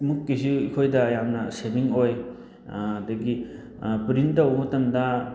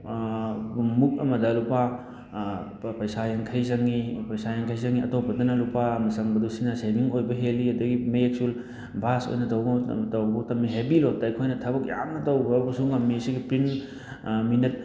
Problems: none marked